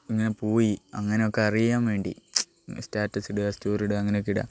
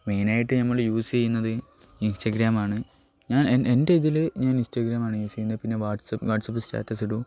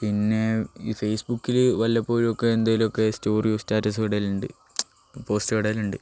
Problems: none marked